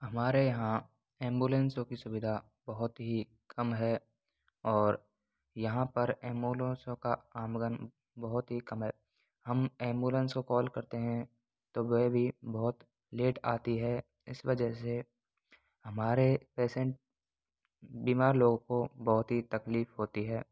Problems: none marked